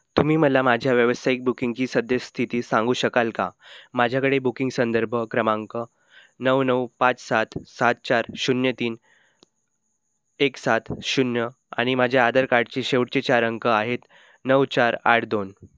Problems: none marked